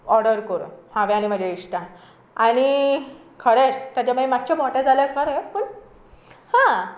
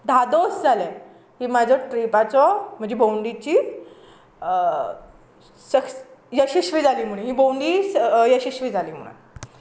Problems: background sounds at intervals